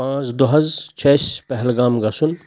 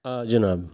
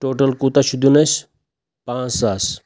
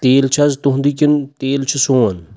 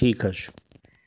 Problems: none marked